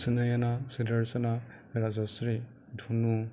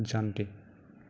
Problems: constant background noise